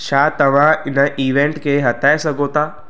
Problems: constant background noise, echo